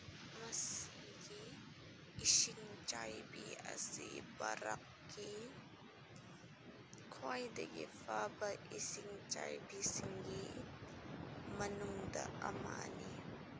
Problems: constant background noise, low volume